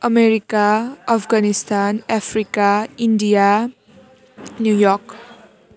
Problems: continuous background conversations